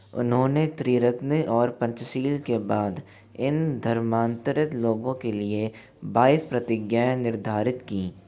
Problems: background sounds at intervals